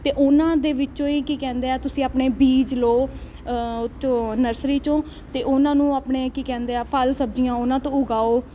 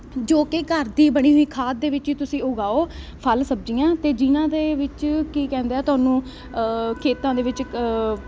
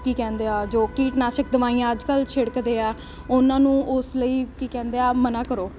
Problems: constant background noise